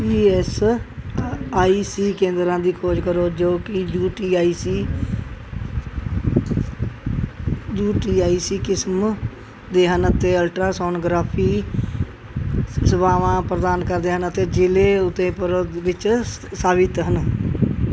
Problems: background sounds at intervals